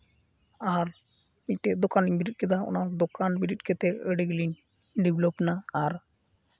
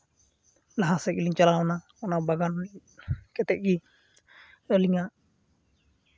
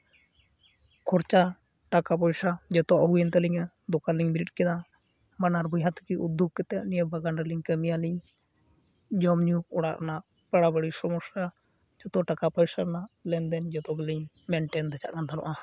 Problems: background sounds at intervals